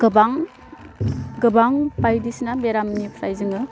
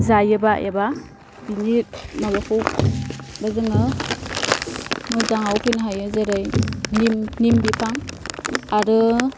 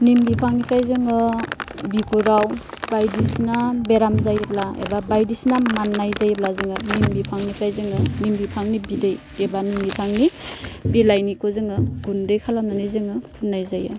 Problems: constant background noise